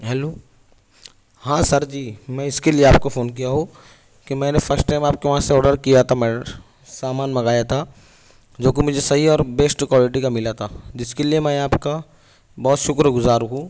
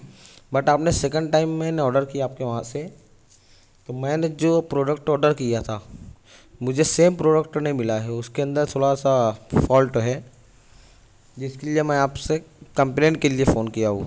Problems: none marked